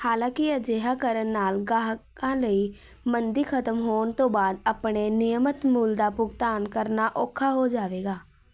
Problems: none marked